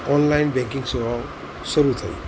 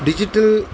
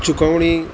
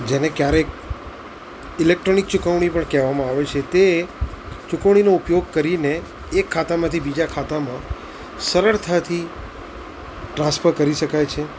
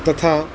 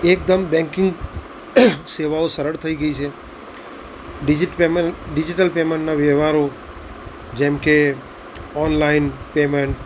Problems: constant background noise